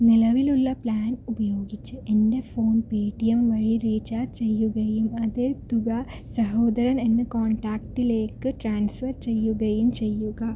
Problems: low volume